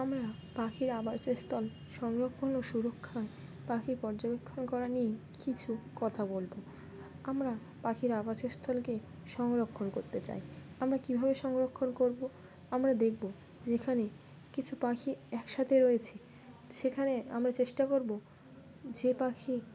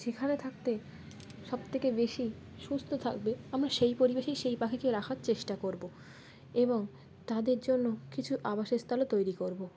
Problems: background sounds at intervals, background conversations at intervals